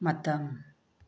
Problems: low volume